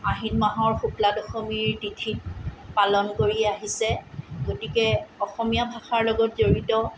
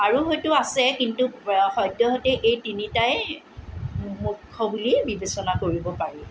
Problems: none marked